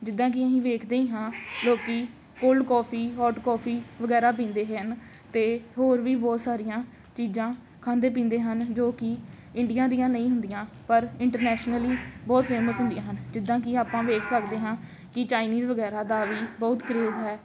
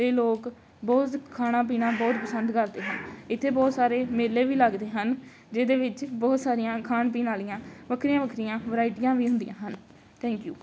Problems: none marked